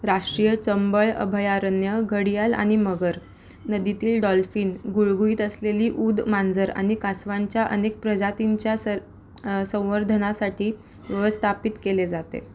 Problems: background sounds at intervals